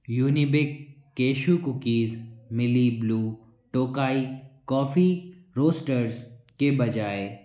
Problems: background conversations at intervals, echo